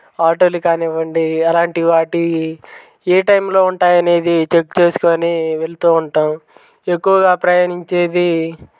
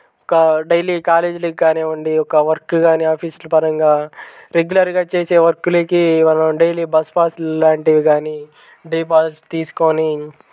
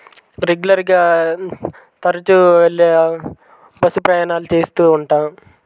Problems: background sounds at intervals